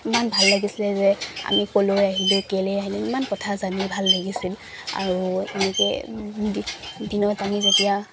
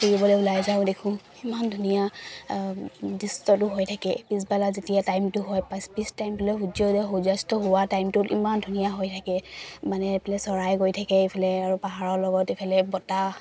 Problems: none marked